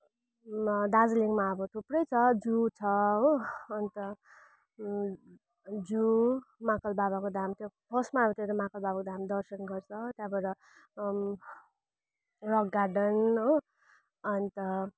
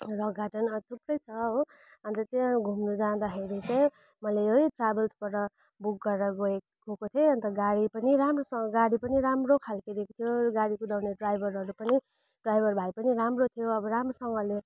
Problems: constant background noise